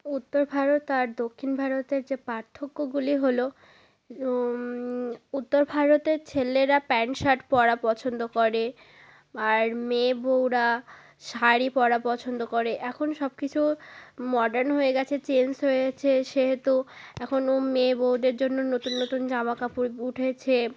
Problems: constant background noise